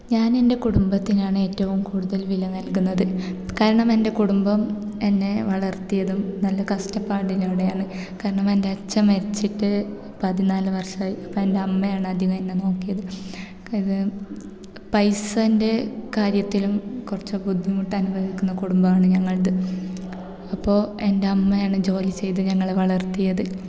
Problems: background sounds at intervals